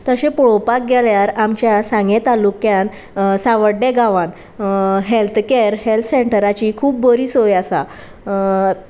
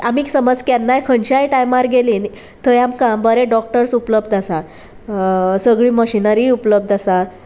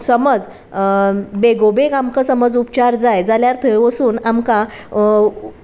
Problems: constant background noise